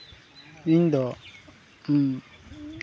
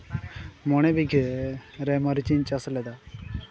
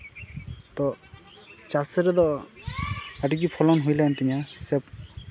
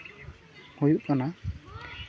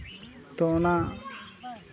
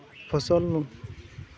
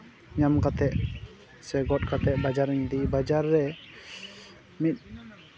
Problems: constant background noise